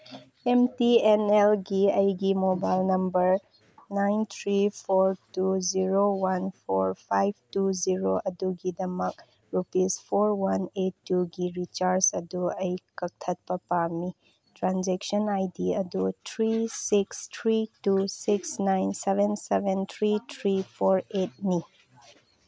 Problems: none marked